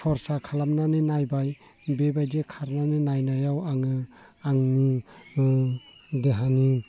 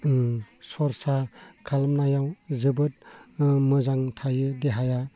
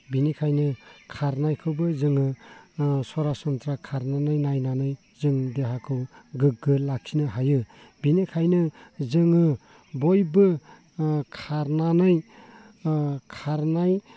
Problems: constant background noise